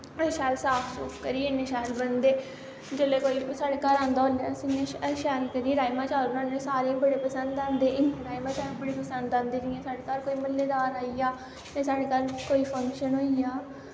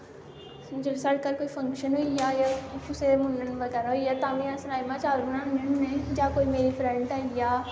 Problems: constant background noise